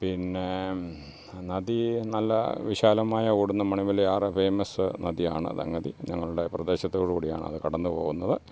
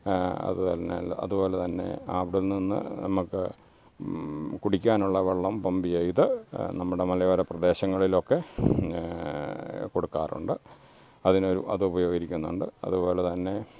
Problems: background sounds at intervals